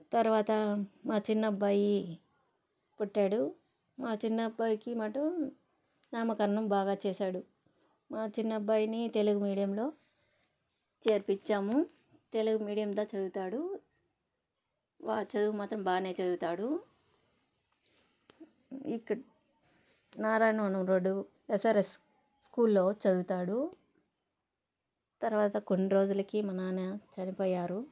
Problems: none marked